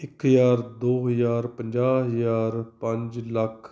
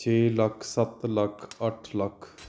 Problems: background sounds at intervals